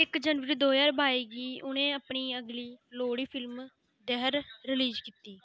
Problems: constant background noise